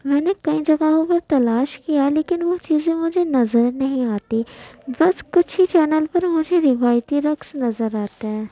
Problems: constant background noise, background conversations at intervals